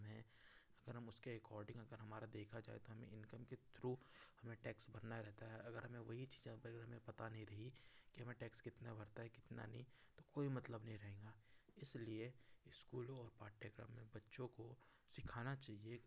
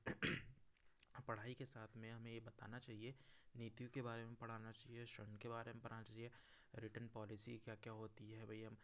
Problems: background sounds at intervals